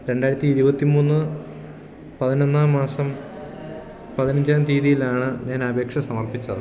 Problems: background sounds at intervals